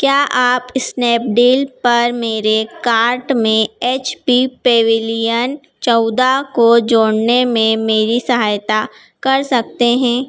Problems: none marked